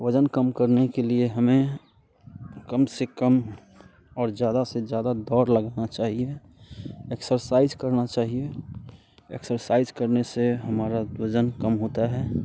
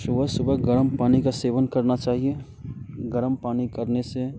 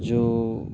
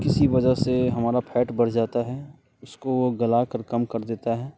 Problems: constant background noise